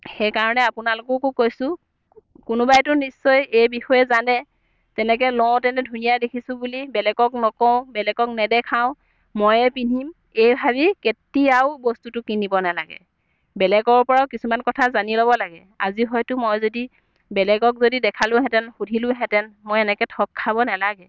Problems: none marked